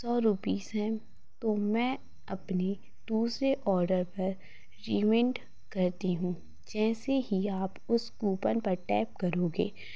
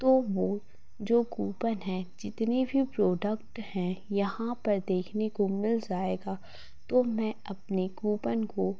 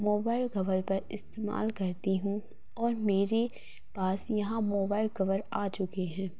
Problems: constant background noise, low volume